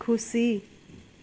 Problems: none marked